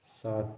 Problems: low volume